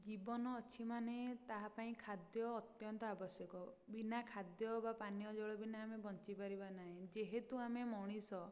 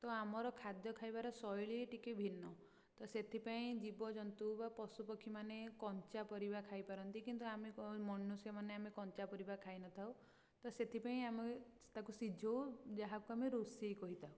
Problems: low volume